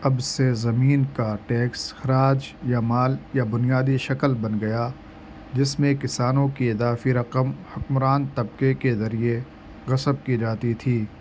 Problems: constant background noise